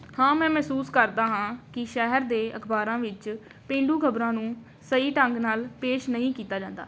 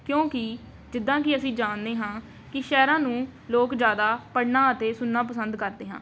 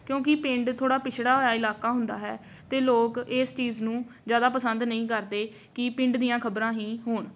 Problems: none marked